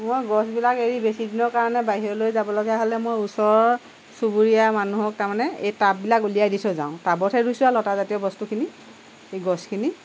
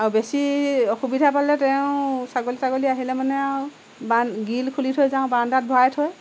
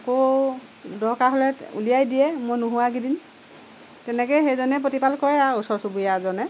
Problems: none marked